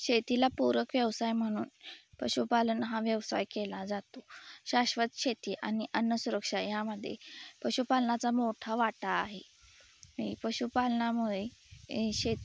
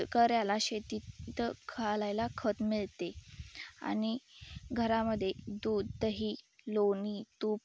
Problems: background sounds at intervals